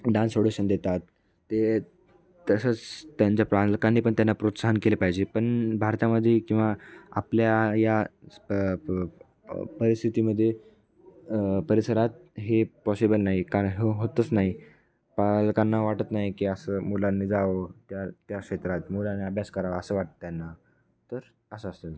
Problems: none marked